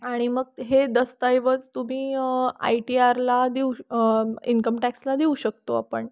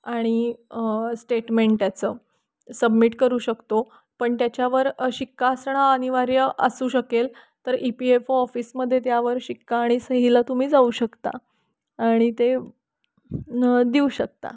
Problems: constant background noise